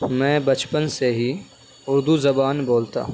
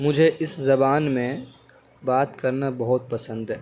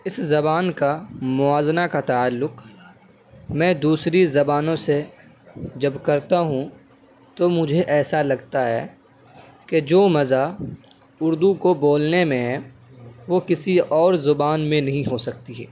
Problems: none marked